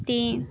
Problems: background sounds at intervals